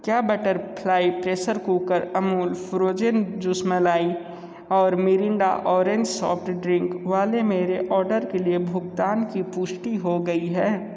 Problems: none marked